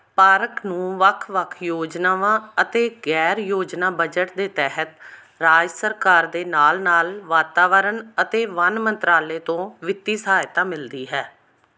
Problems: background sounds at intervals